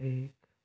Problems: constant background noise